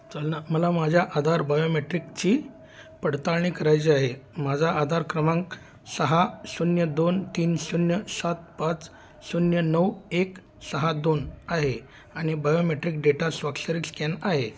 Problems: constant background noise